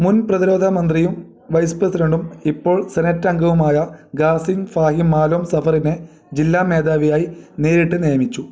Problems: none marked